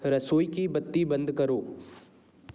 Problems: none marked